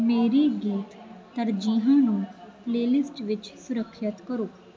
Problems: constant background noise